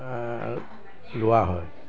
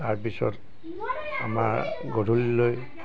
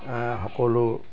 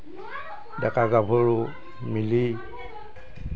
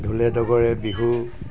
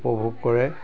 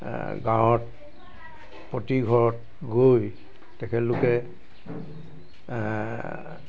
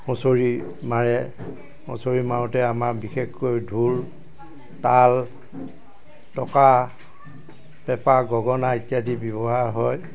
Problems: background sounds at intervals